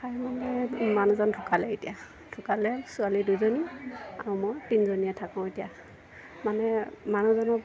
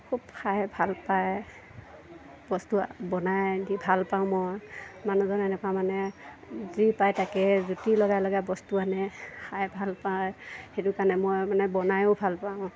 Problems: none marked